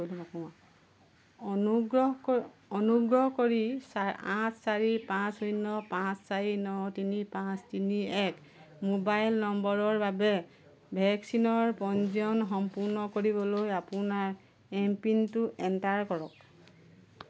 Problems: constant background noise